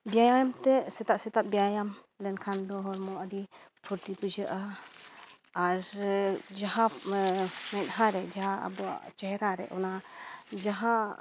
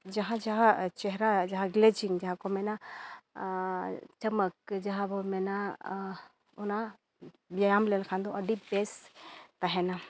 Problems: background sounds at intervals